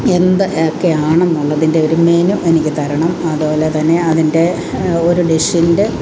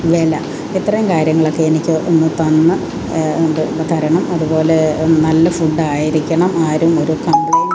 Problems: constant background noise